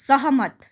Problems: none marked